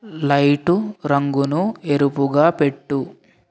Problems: none marked